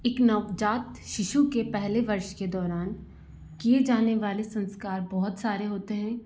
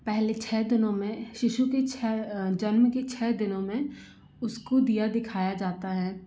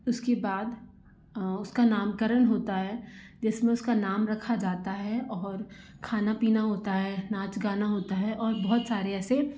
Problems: constant background noise